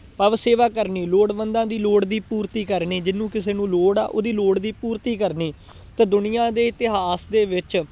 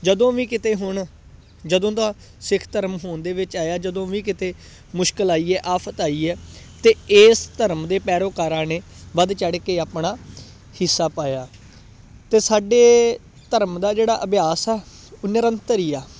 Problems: constant background noise